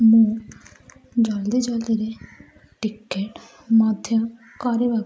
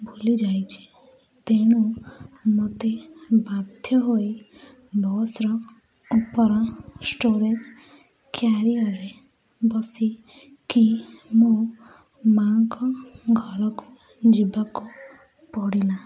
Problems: none marked